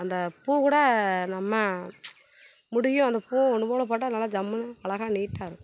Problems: background sounds at intervals